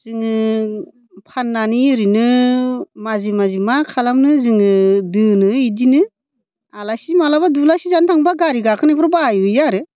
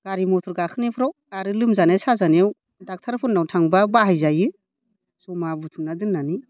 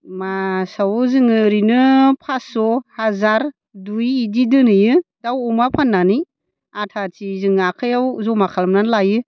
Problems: none marked